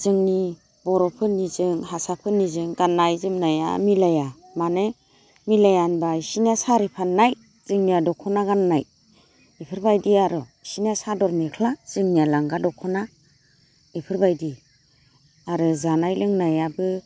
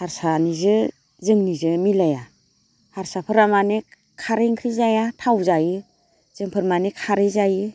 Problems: constant background noise